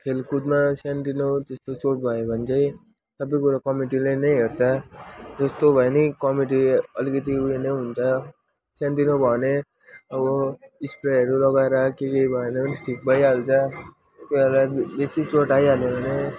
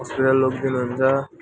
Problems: background sounds at intervals